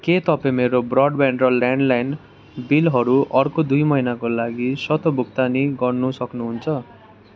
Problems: continuous background conversations